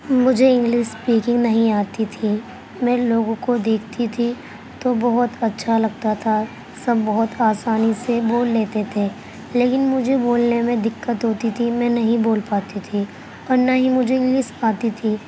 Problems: constant background noise